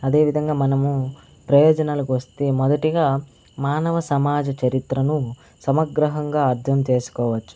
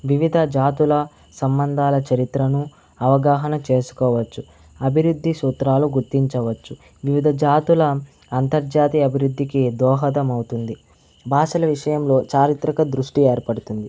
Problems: constant background noise